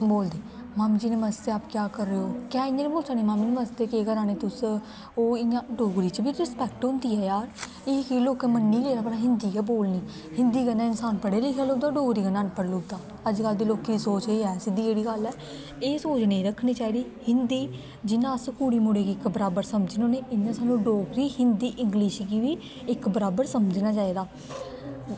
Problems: constant background noise